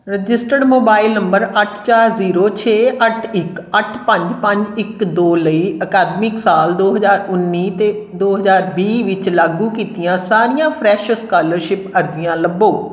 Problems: none marked